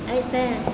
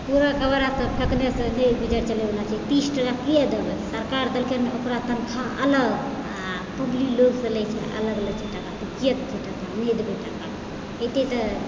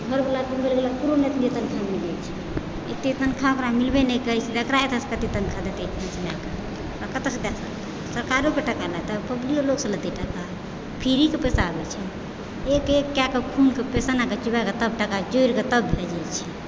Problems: constant background noise